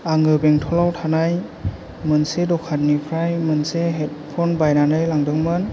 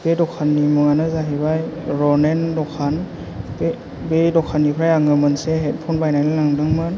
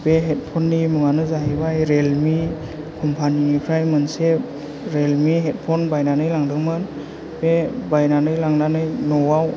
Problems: low volume